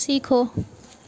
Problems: none marked